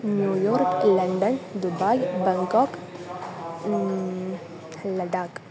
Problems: constant background noise